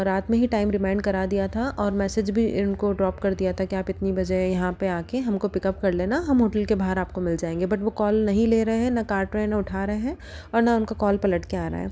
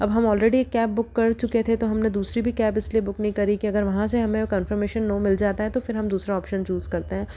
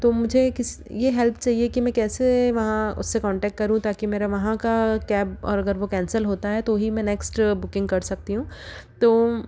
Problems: none marked